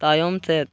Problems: background sounds at intervals